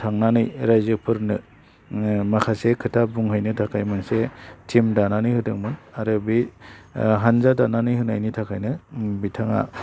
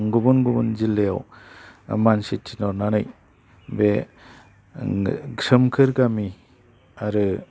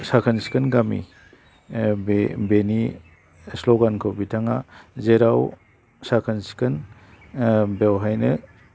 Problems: low volume